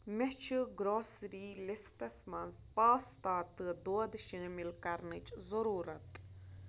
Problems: constant background noise